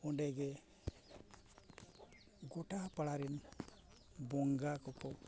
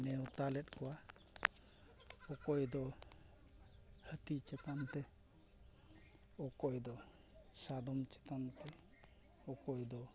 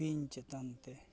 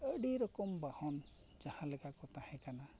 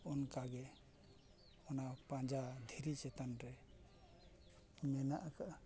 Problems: low volume